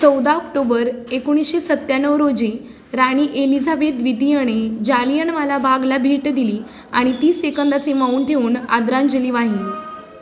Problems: constant background noise, background conversations at intervals